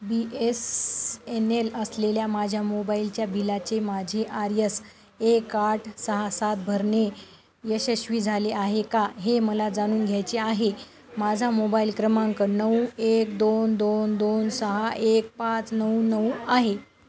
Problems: constant background noise, continuous background conversations